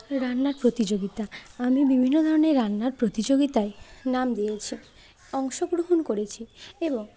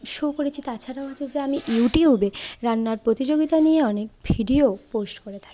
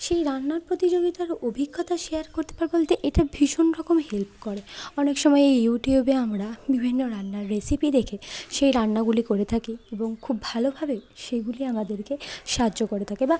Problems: constant background noise, continuous background conversations